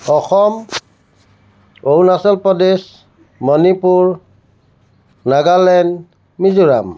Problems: none marked